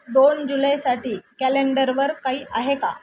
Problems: constant background noise